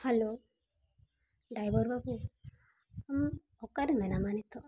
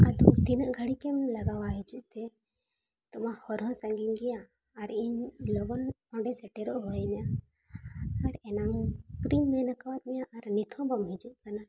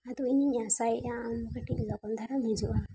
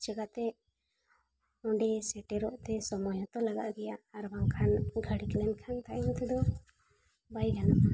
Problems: background sounds at intervals